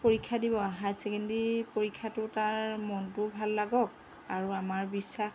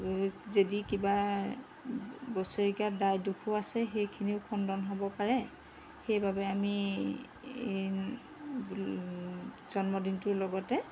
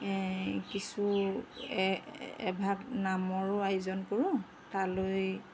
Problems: background sounds at intervals